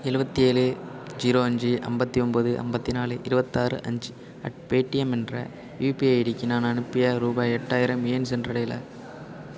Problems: none marked